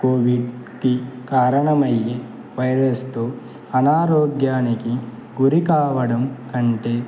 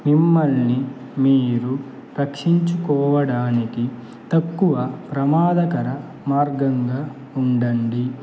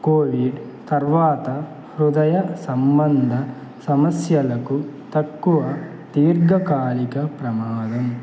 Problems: constant background noise